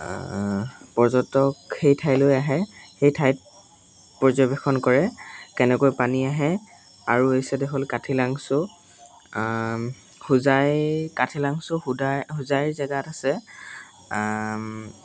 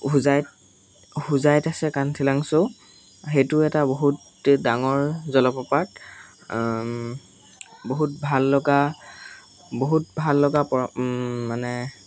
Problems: constant background noise, background conversations at intervals